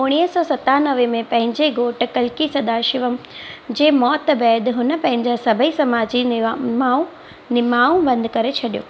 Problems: constant background noise